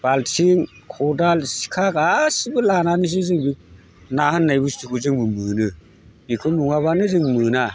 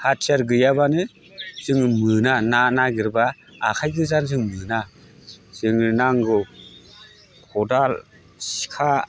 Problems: constant background noise